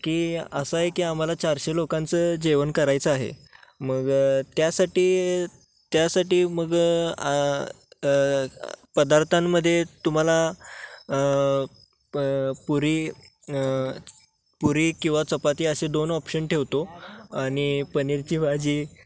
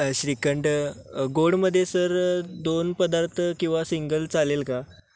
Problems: none marked